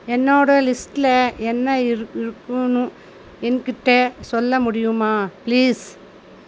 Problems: constant background noise